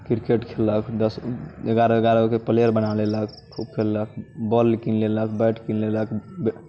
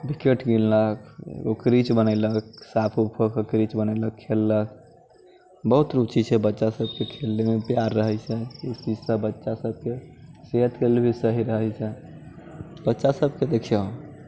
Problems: none marked